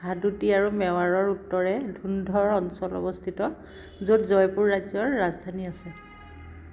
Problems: constant background noise